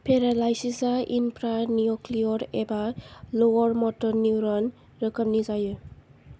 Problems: none marked